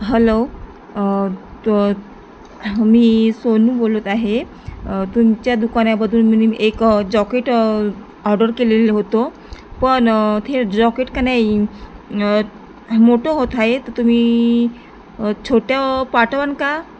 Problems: constant background noise